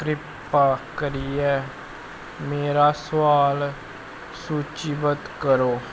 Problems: constant background noise